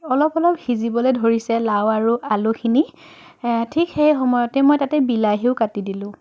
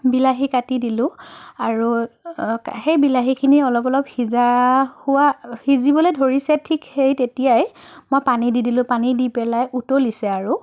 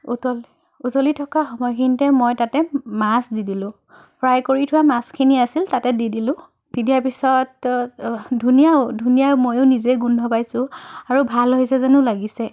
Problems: none marked